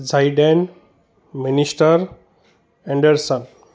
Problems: constant background noise